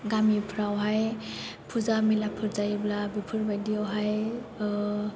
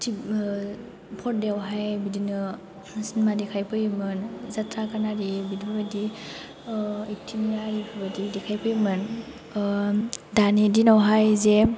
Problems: low volume